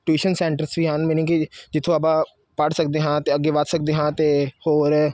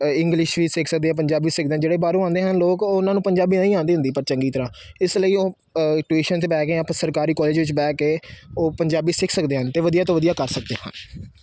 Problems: background sounds at intervals